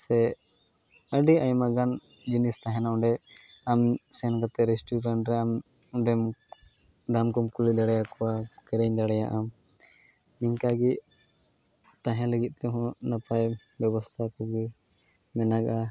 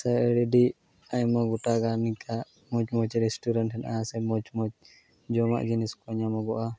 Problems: background sounds at intervals